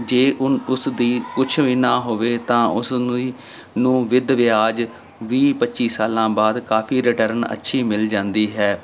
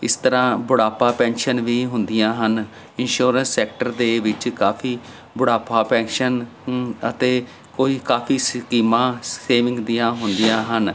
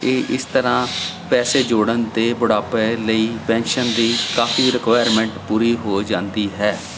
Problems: none marked